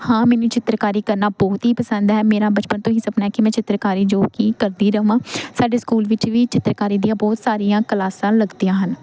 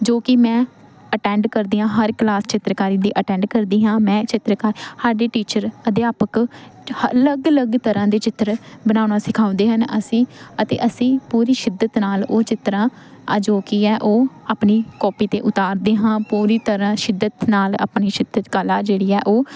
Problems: constant background noise